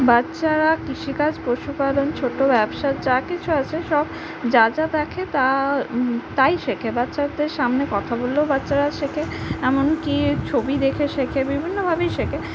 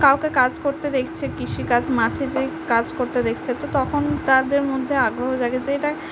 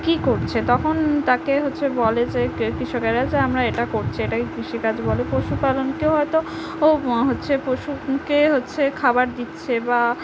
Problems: constant background noise